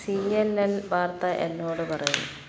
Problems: constant background noise